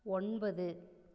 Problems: none marked